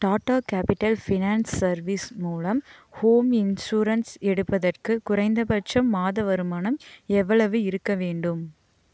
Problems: none marked